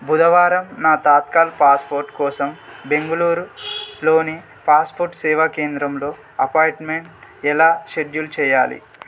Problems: constant background noise